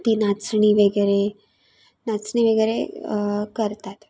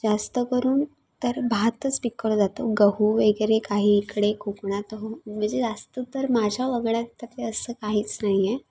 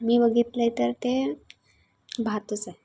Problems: constant background noise, background conversations at intervals